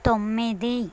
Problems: constant background noise